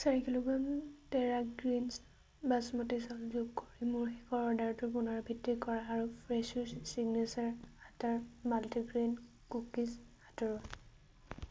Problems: background sounds at intervals